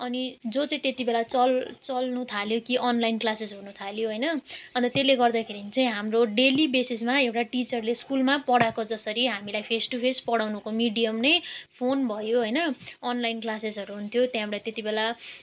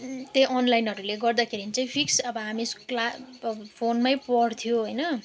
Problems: none marked